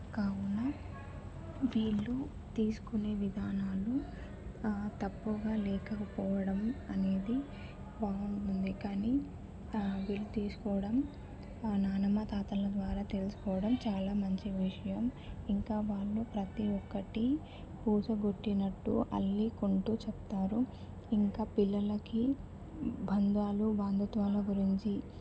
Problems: constant background noise